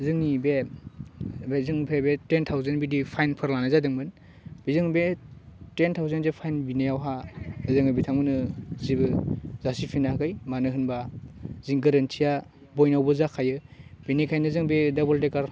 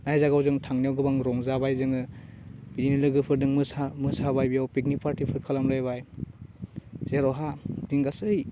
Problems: low volume